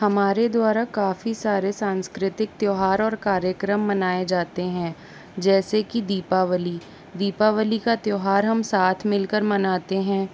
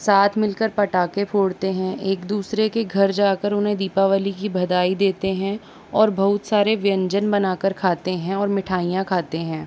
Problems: constant background noise